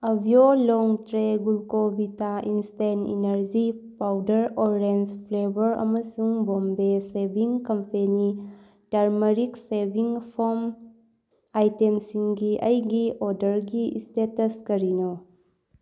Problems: none marked